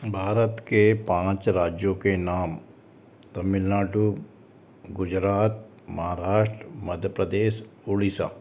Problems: constant background noise